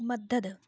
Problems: low volume